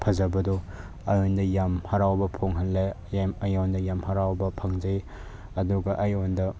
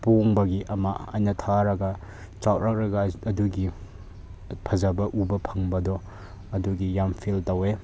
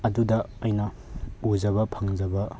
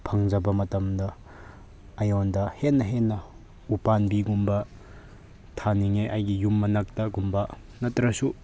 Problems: none marked